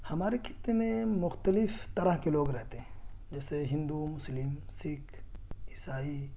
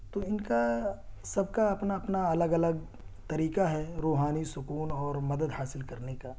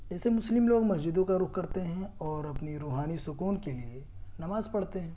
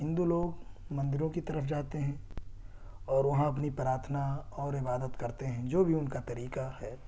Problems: constant background noise